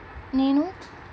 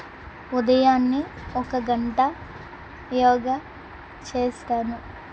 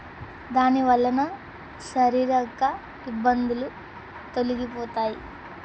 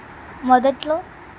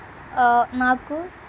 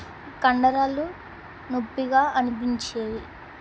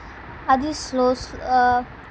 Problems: constant background noise